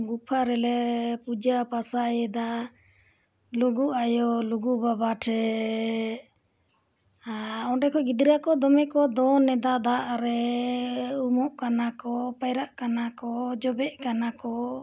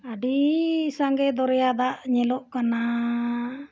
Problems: none marked